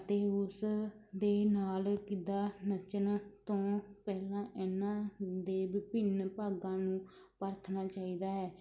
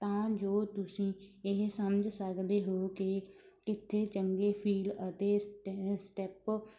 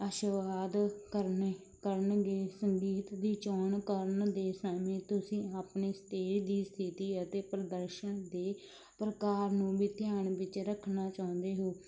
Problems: none marked